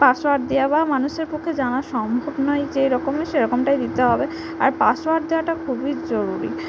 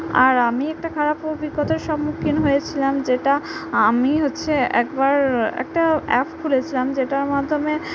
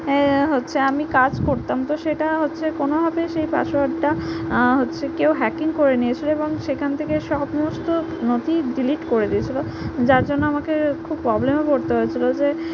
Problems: none marked